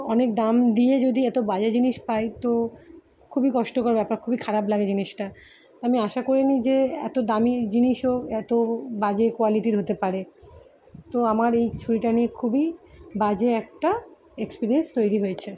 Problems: none marked